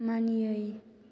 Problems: constant background noise